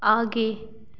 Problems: constant background noise, echo